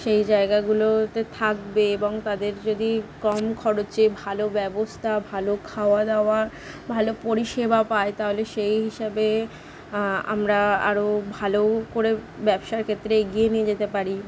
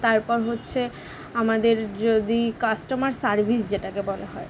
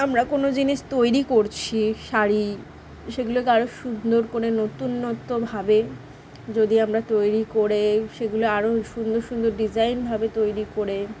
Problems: none marked